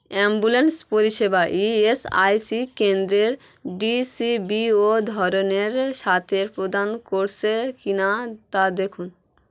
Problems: constant background noise